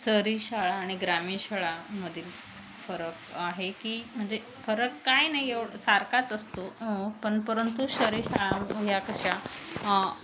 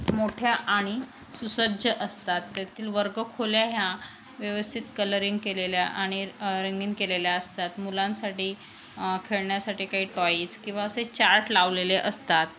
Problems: none marked